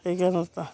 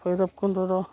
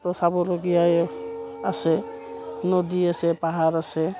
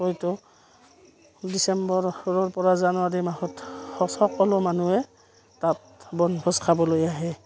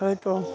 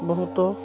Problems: none marked